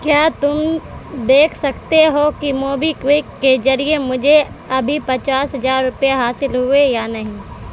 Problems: constant background noise